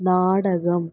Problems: low volume